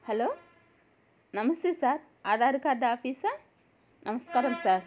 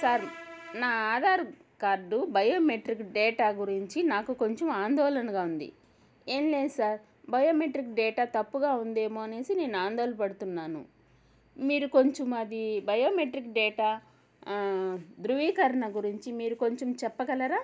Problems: none marked